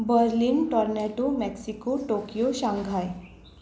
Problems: background sounds at intervals